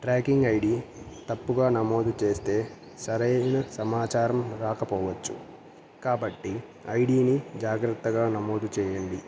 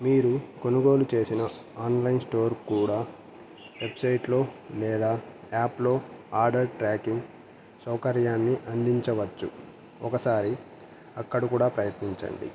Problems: none marked